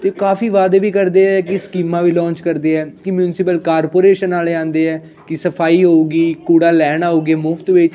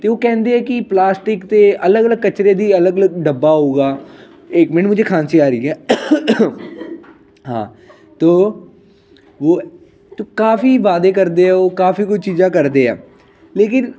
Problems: background conversations at intervals